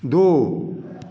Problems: none marked